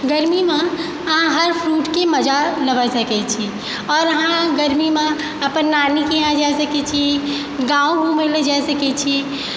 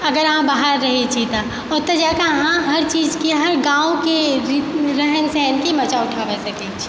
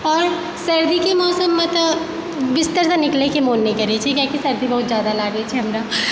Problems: echo